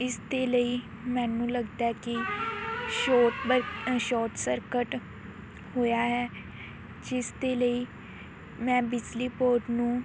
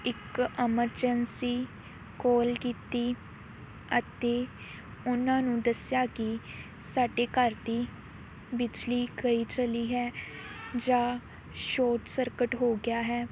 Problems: constant background noise